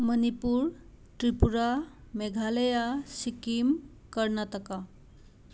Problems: none marked